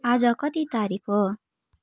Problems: constant background noise